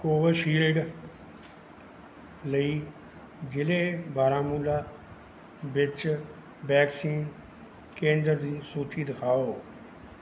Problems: background sounds at intervals